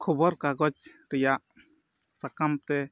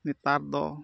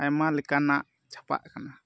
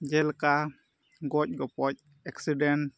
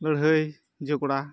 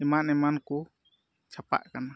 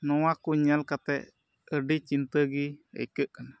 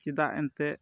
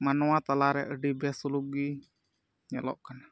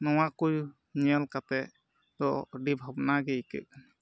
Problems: background sounds at intervals, low volume